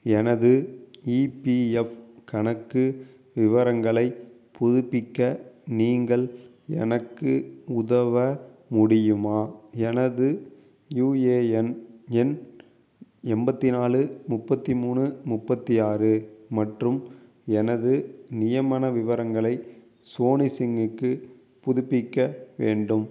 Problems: none marked